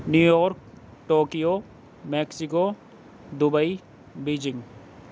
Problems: none marked